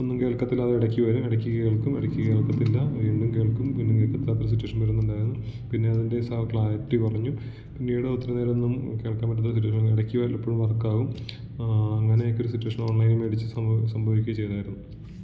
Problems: echo, low volume